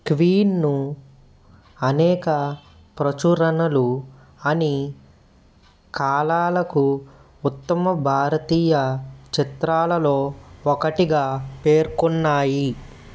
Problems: background sounds at intervals